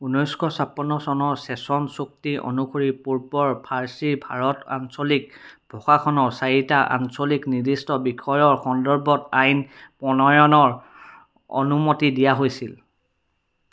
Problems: none marked